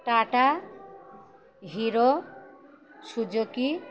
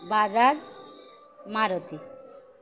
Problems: none marked